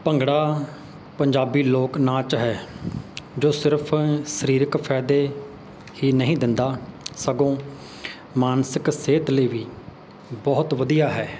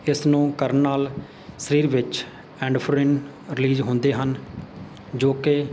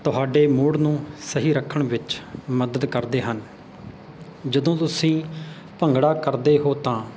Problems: background sounds at intervals